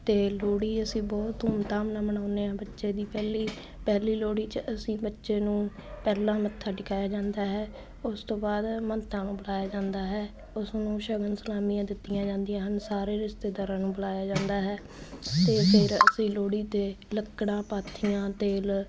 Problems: none marked